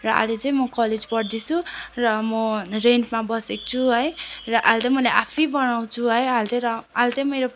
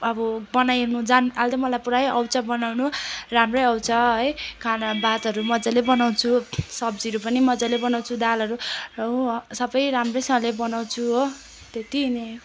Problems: constant background noise